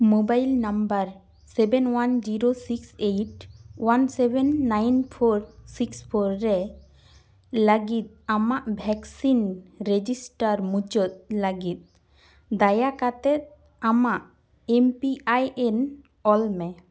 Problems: none marked